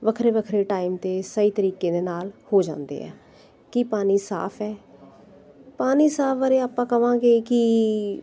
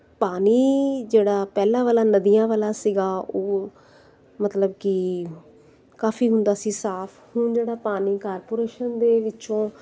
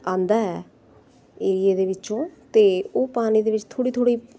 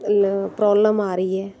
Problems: none marked